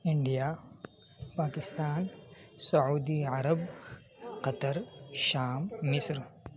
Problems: background sounds at intervals, background conversations at intervals